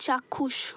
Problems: constant background noise